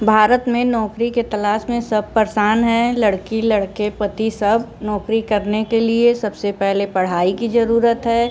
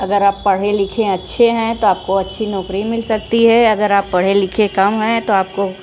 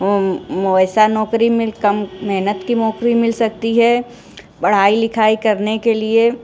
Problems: background sounds at intervals